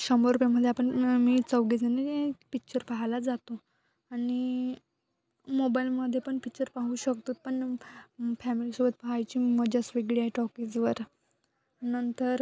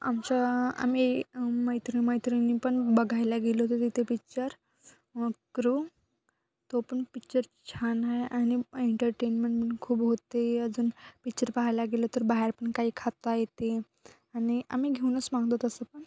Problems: constant background noise